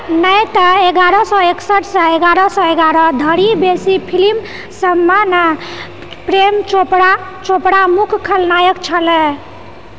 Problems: background sounds at intervals